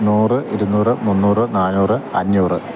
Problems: constant background noise